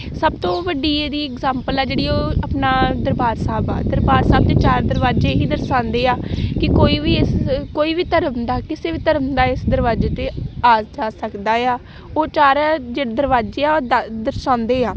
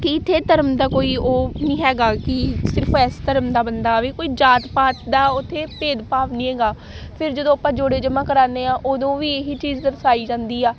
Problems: constant background noise